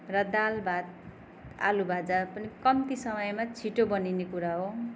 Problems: background sounds at intervals